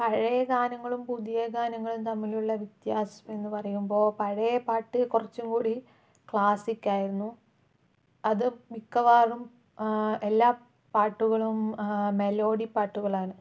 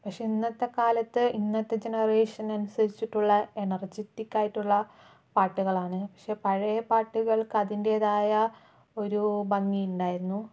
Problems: low volume